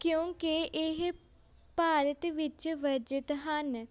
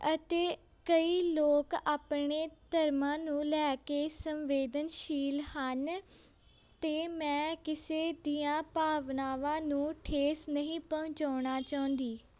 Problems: constant background noise